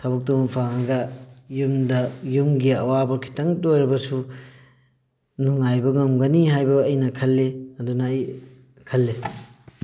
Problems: background sounds at intervals